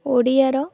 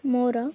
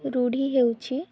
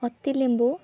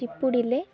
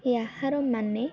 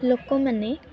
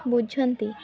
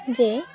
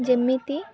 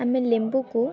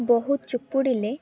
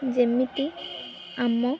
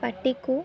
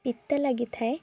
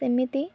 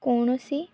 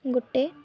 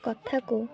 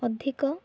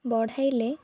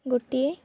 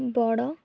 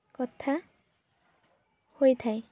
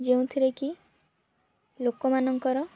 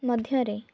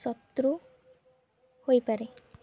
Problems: background sounds at intervals, background conversations at intervals